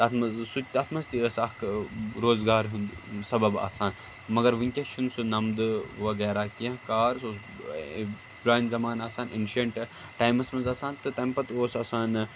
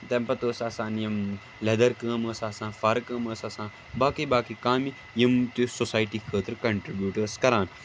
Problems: constant background noise